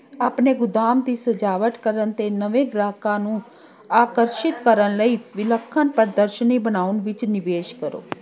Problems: background sounds at intervals, continuous background conversations